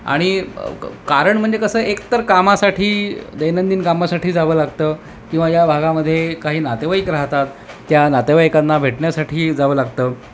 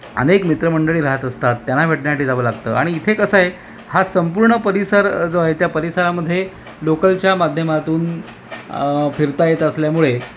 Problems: constant background noise